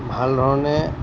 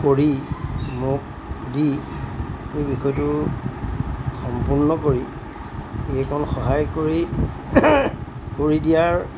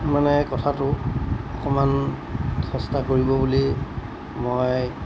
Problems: background sounds at intervals